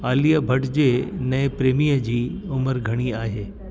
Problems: constant background noise, echo